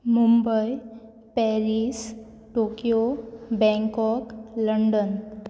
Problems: none marked